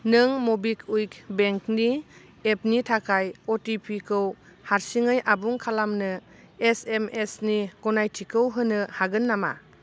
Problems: none marked